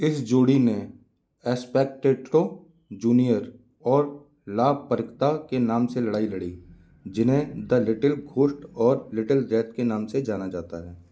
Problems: background sounds at intervals